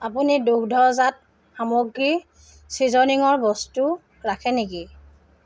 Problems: none marked